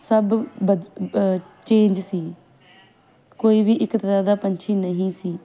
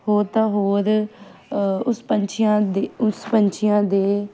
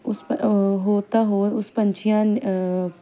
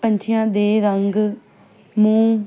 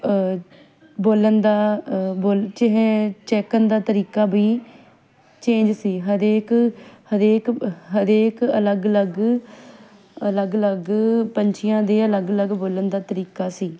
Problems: background sounds at intervals